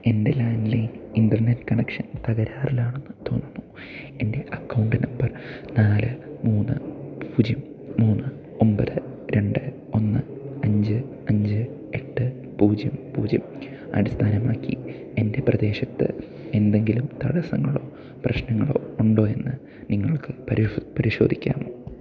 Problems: low volume